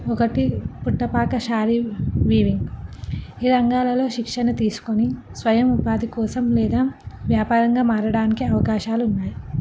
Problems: background sounds at intervals